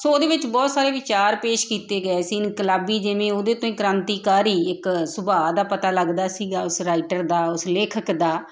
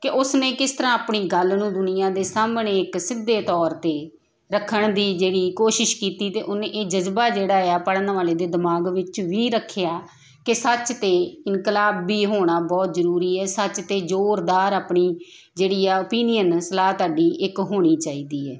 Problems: constant background noise